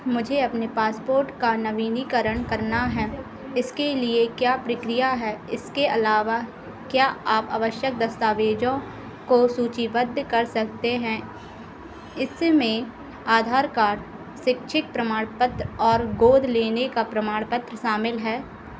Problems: constant background noise